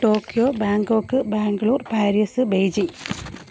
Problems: constant background noise